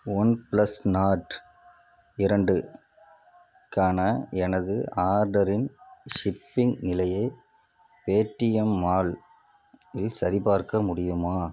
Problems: none marked